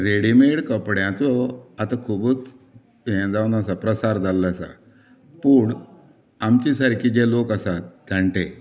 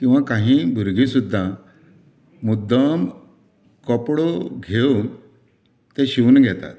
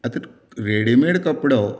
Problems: background conversations at intervals